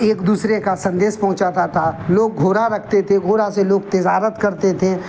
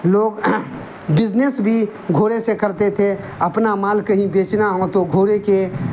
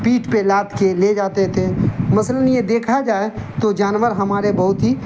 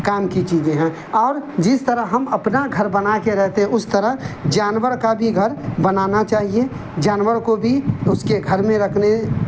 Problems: constant background noise